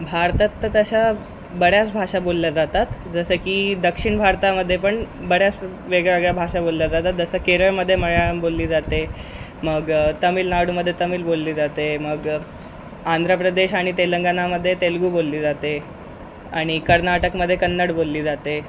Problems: constant background noise